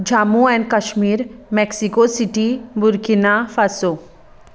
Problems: constant background noise